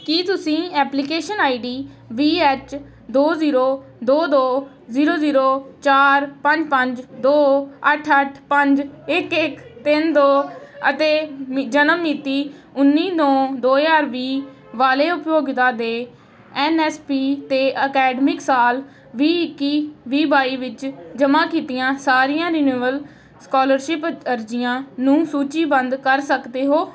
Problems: background sounds at intervals, background conversations at intervals